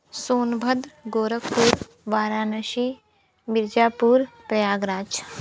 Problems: background sounds at intervals, continuous background conversations